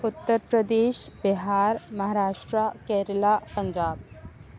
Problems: none marked